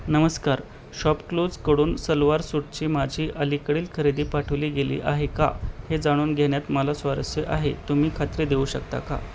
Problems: none marked